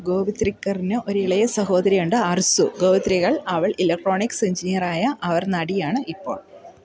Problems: continuous background conversations